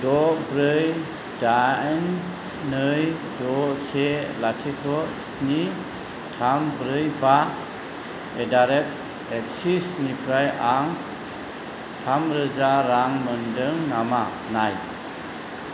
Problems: constant background noise